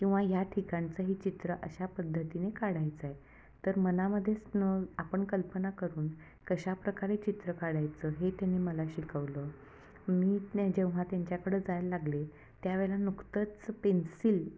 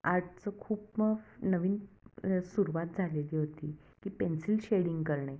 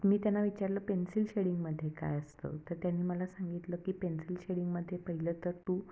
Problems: background sounds at intervals